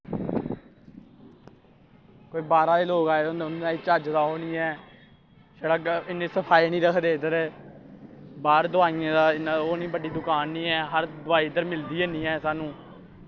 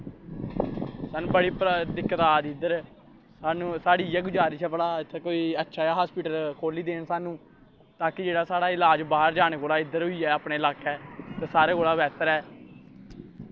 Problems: constant background noise